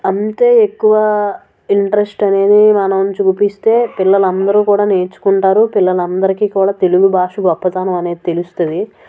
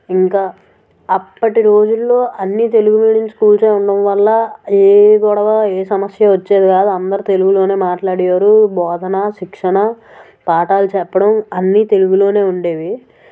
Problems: background sounds at intervals